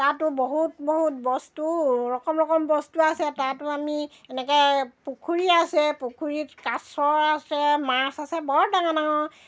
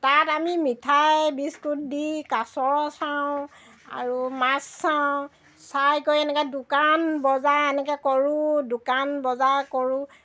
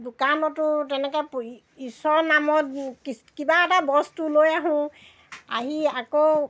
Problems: background sounds at intervals